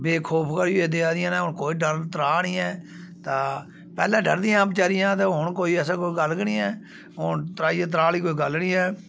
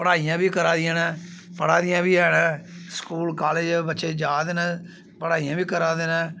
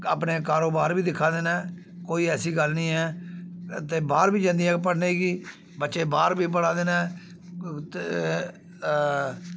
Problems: background sounds at intervals